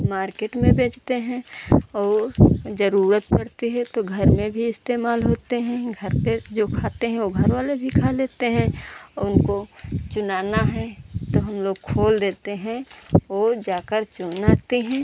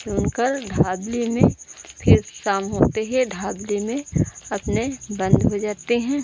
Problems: background sounds at intervals